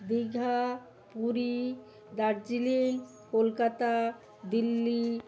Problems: constant background noise